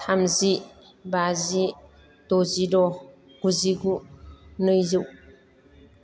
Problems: none marked